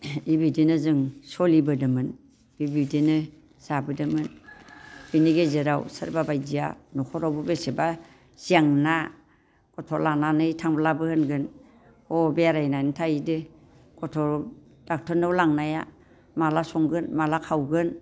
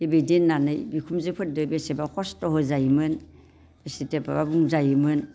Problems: constant background noise